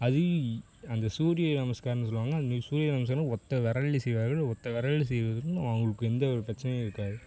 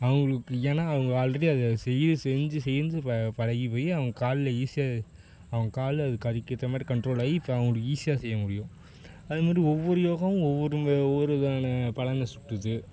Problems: constant background noise